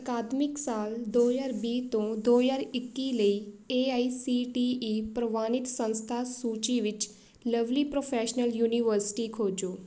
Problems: background sounds at intervals